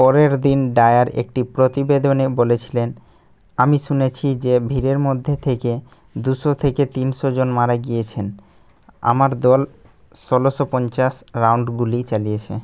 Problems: none marked